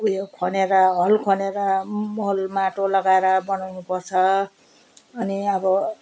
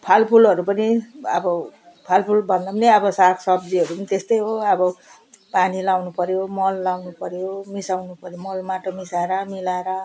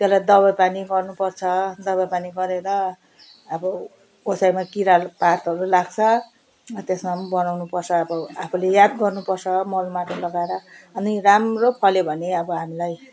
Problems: none marked